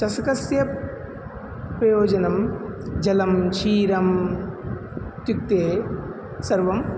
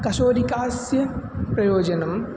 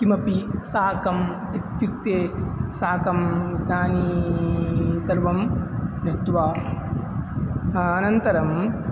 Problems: constant background noise